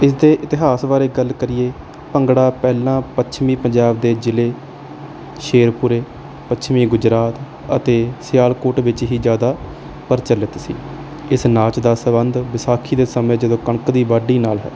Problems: none marked